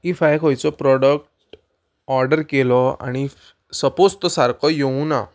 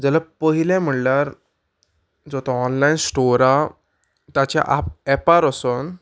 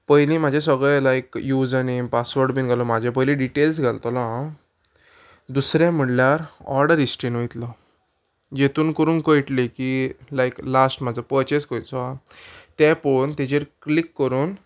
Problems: background sounds at intervals